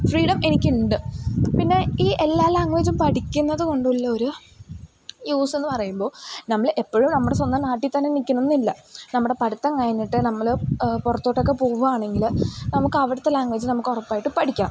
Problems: constant background noise, low volume